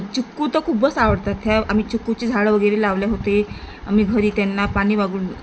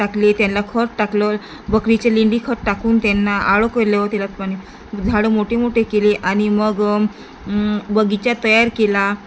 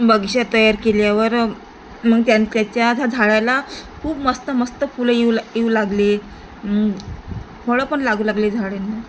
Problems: constant background noise